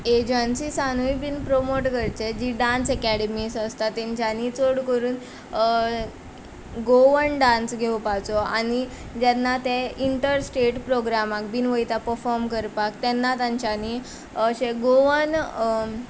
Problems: constant background noise